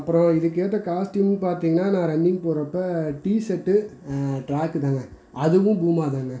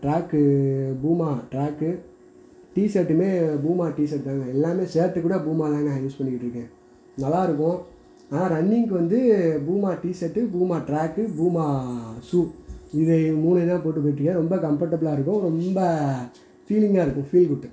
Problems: background sounds at intervals